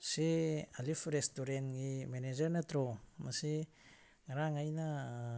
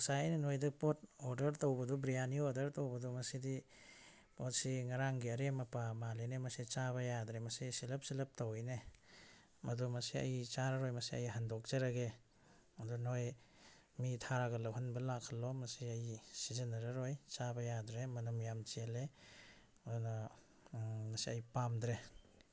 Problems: none marked